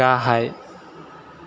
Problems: constant background noise